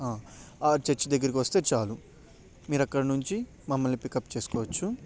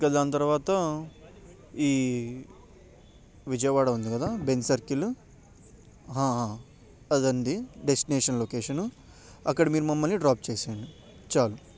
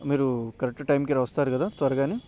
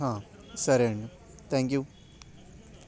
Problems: none marked